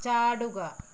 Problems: low volume